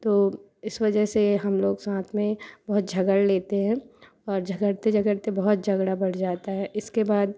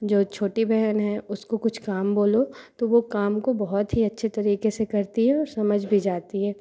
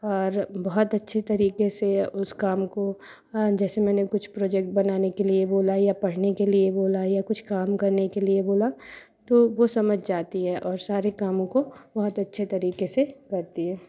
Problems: constant background noise